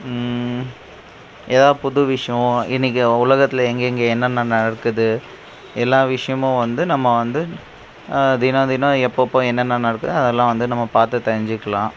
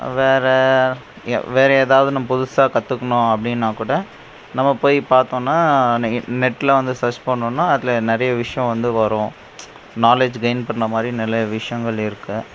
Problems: none marked